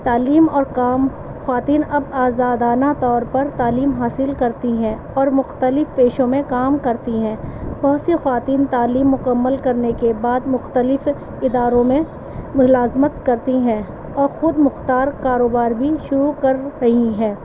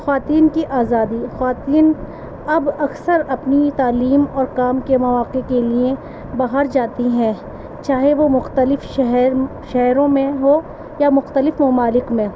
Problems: constant background noise